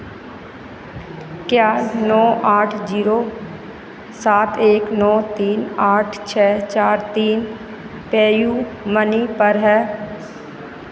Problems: none marked